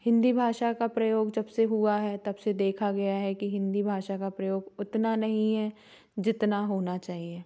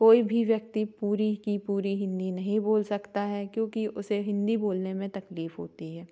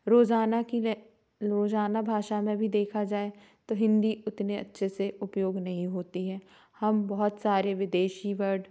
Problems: background sounds at intervals